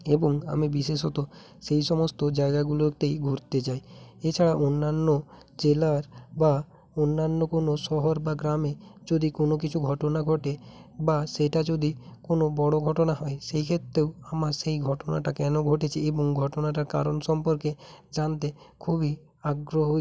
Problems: constant background noise